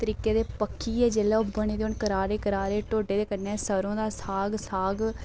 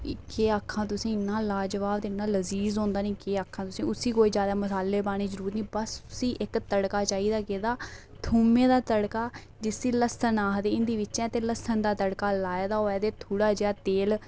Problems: background sounds at intervals